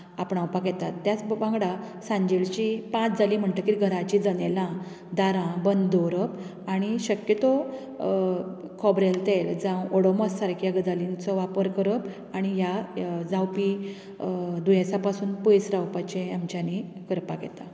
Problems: none marked